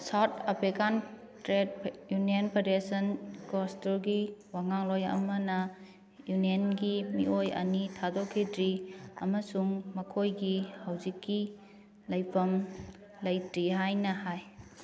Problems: background sounds at intervals, background conversations at intervals